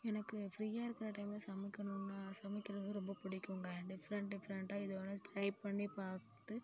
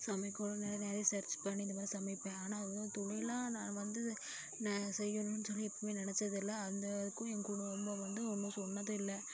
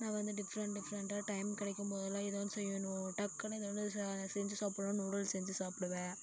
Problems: none marked